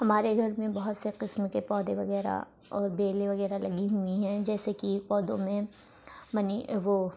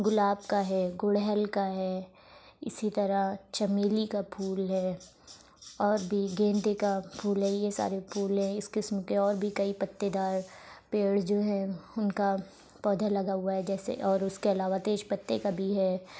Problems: constant background noise